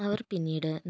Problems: low volume